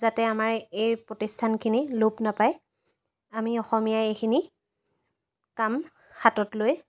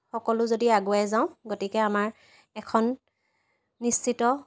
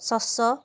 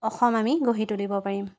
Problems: constant background noise